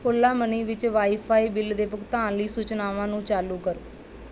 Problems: background sounds at intervals